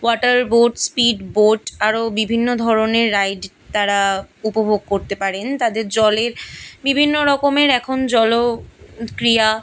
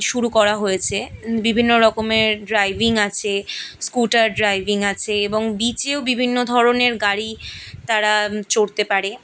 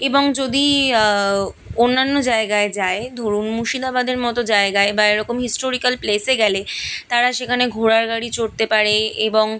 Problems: background sounds at intervals